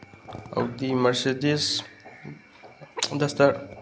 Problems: none marked